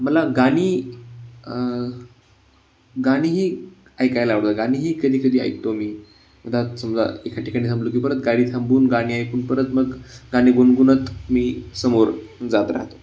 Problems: constant background noise, background conversations at intervals